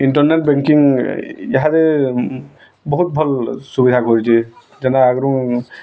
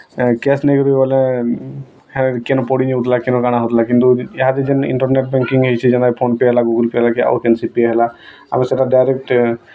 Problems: constant background noise, continuous background conversations